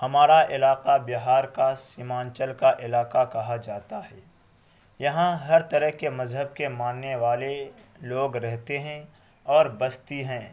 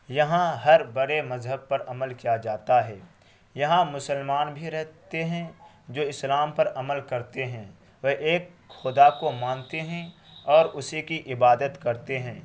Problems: constant background noise